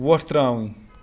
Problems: constant background noise